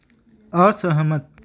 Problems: none marked